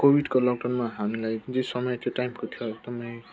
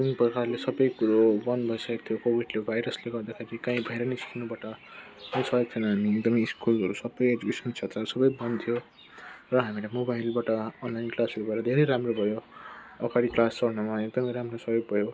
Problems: constant background noise